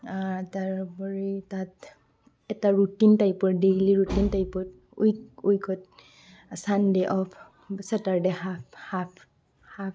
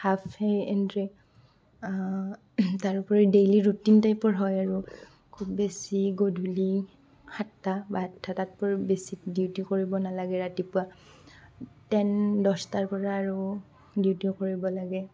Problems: background sounds at intervals, background conversations at intervals